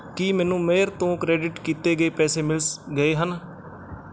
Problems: none marked